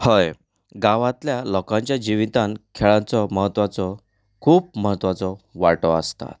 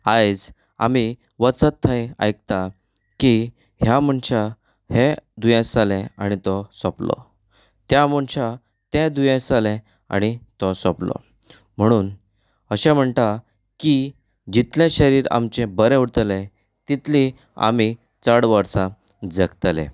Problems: none marked